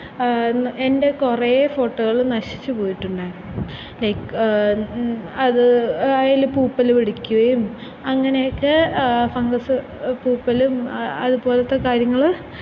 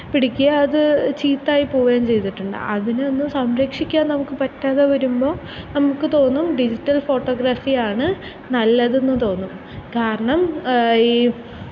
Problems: constant background noise